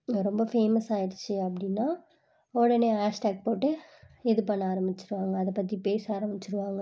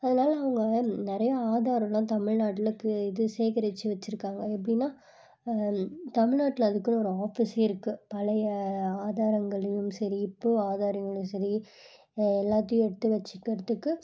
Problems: low volume